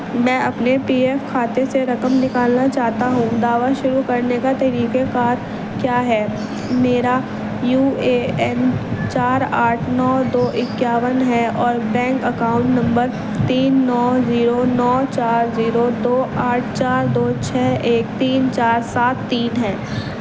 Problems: constant background noise, background conversations at intervals, low volume